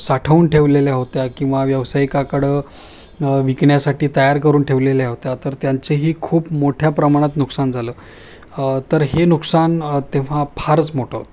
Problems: none marked